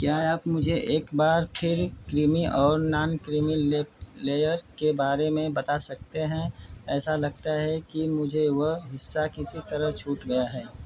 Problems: constant background noise